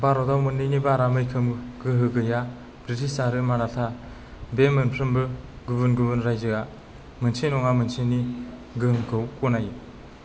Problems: none marked